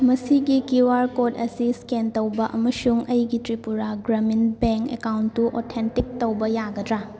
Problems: background sounds at intervals, background conversations at intervals